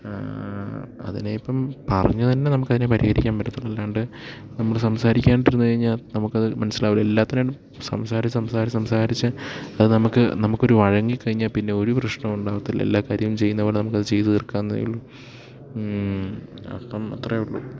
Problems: none marked